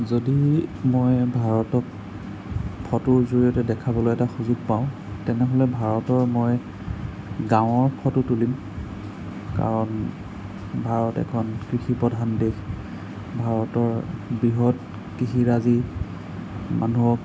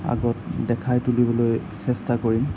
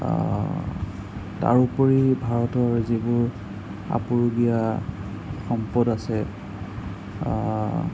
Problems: constant background noise